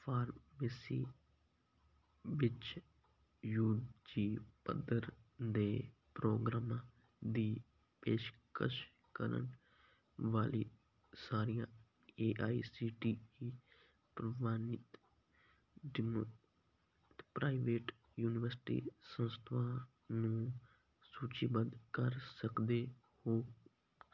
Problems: none marked